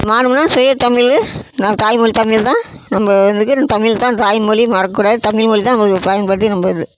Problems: constant background noise